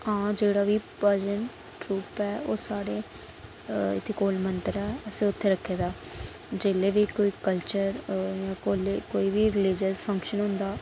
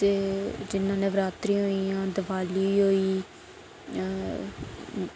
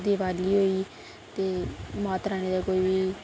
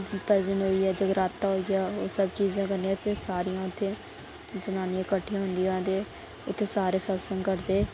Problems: constant background noise